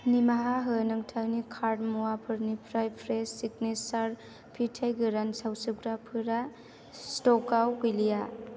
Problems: constant background noise